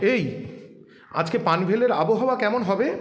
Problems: background sounds at intervals